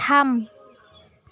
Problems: constant background noise